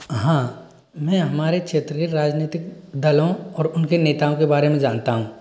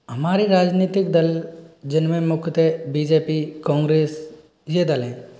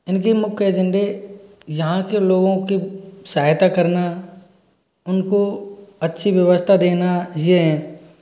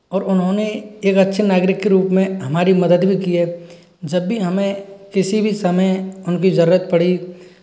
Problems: none marked